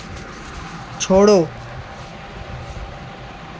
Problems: constant background noise